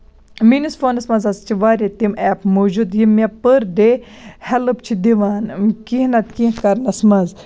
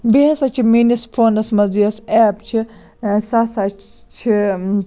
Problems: none marked